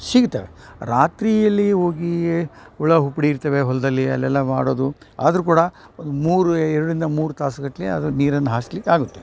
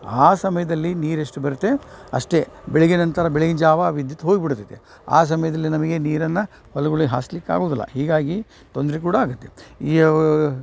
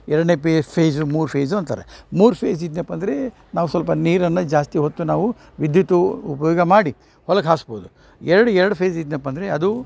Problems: none marked